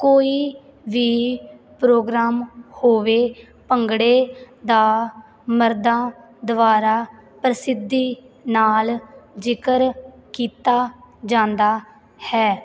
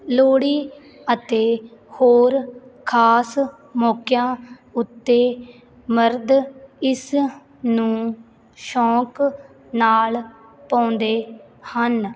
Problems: none marked